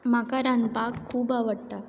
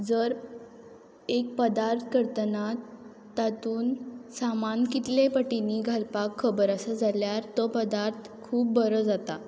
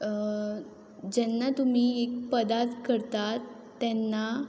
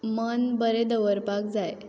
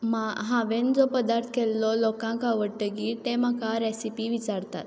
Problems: background sounds at intervals